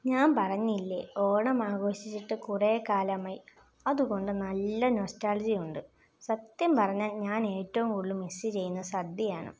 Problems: constant background noise